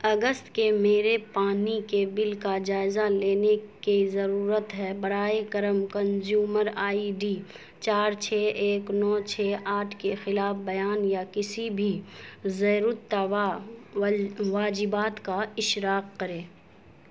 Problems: constant background noise